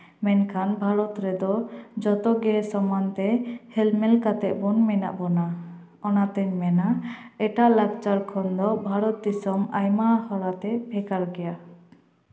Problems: echo